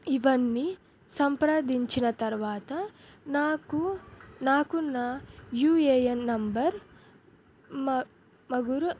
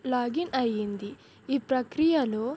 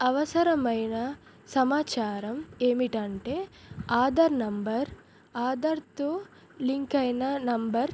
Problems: none marked